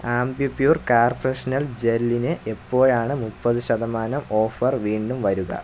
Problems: low volume